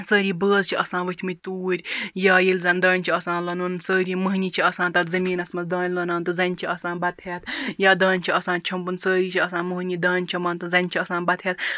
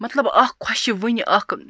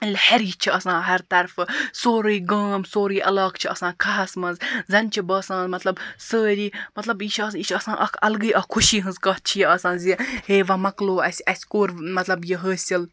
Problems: background sounds at intervals